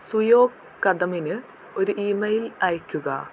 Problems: constant background noise, low volume